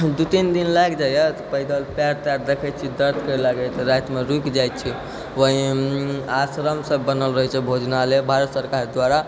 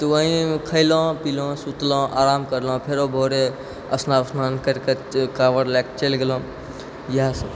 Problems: none marked